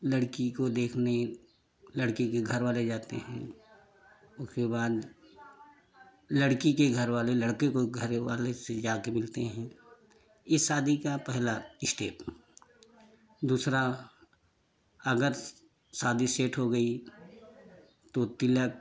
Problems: constant background noise